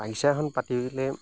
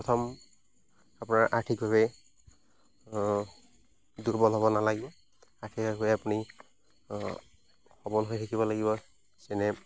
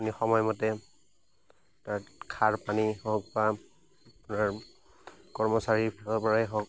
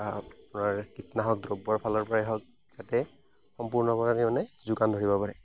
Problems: constant background noise